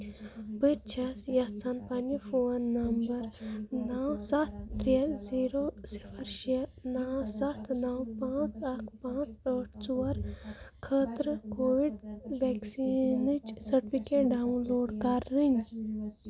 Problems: background sounds at intervals, background conversations at intervals